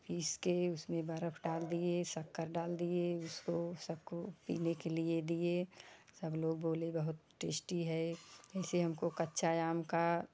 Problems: none marked